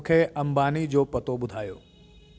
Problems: constant background noise, echo